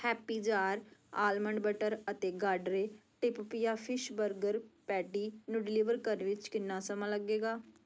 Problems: none marked